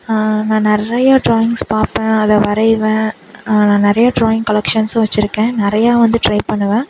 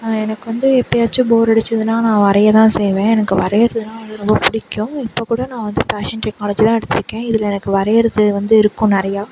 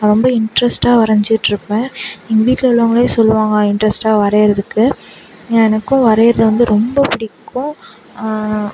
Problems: background sounds at intervals